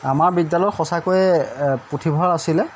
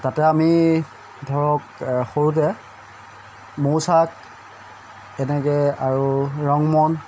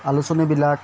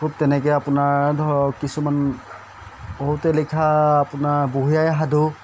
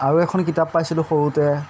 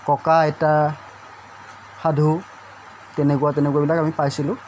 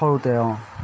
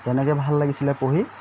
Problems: constant background noise